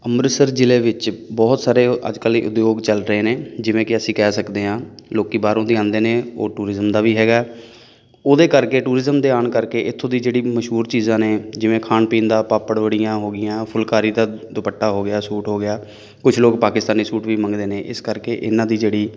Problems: background sounds at intervals